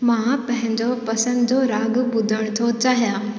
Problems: constant background noise, echo